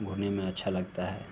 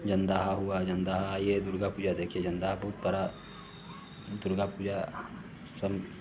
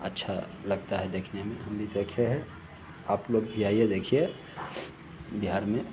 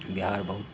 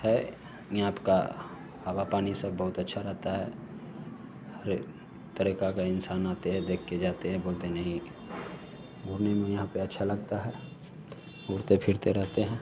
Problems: none marked